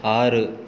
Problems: none marked